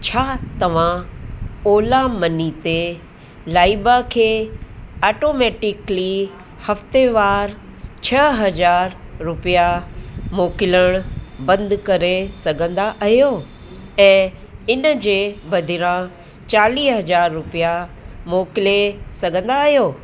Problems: constant background noise